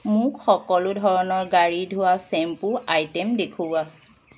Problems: background sounds at intervals